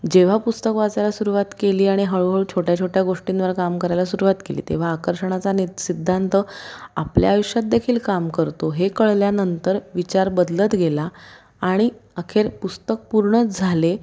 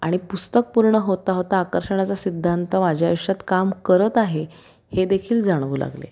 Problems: constant background noise